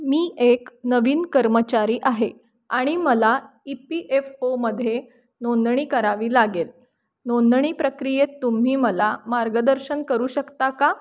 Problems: none marked